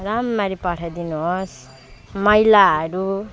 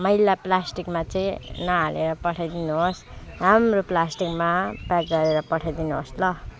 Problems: constant background noise